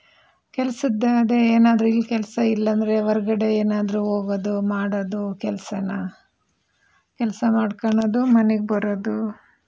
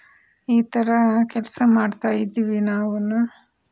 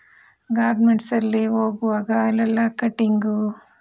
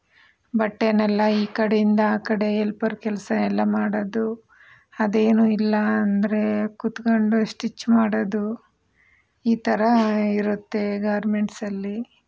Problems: background sounds at intervals